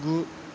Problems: constant background noise